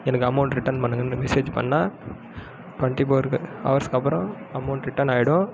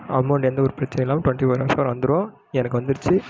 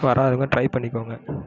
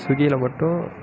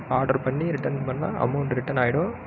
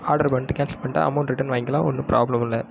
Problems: none marked